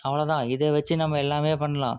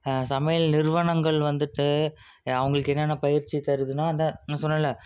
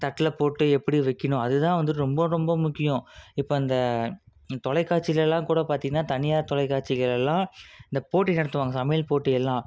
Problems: none marked